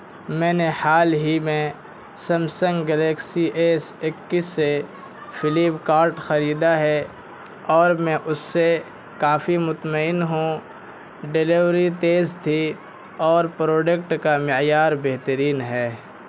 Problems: constant background noise